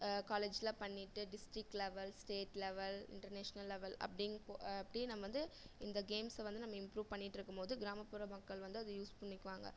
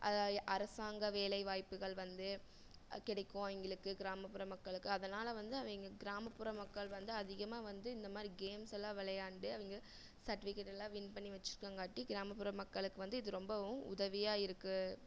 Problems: none marked